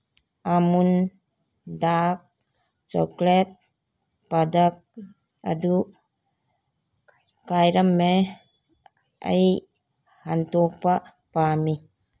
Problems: background sounds at intervals